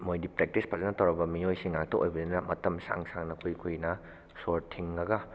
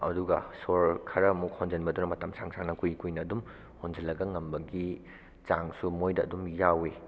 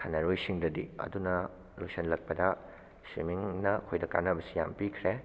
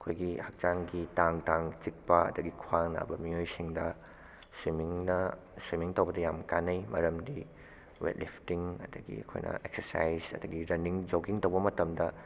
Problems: none marked